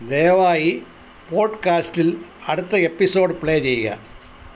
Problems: constant background noise